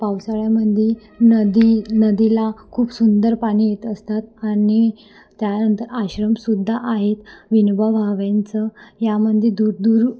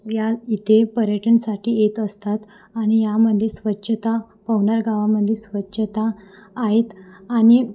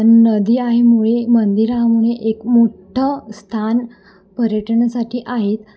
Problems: constant background noise, echo